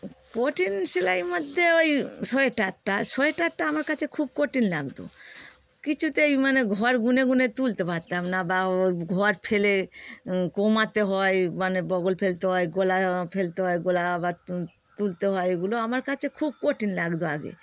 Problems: none marked